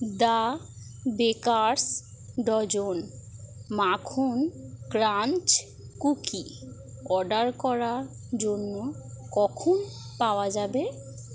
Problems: constant background noise